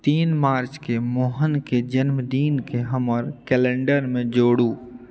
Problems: none marked